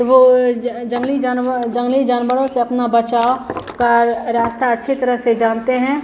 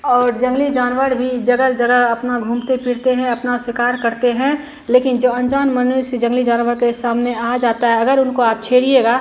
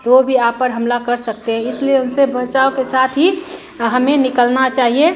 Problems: continuous background conversations